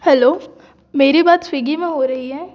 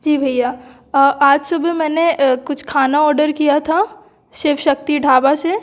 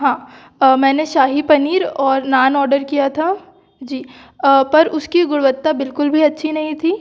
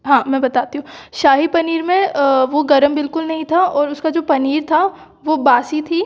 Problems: none marked